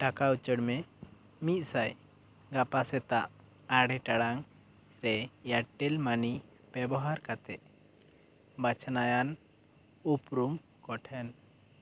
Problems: none marked